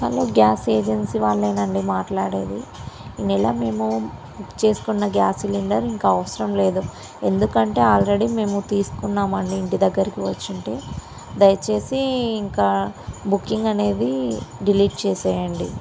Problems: constant background noise